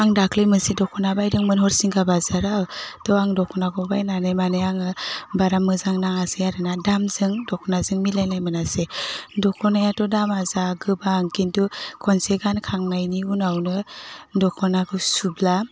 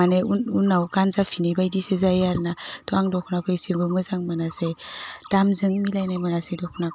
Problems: constant background noise